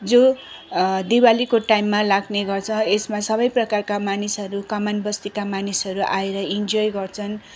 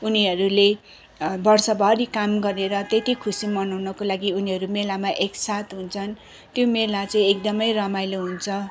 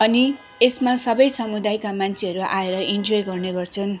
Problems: none marked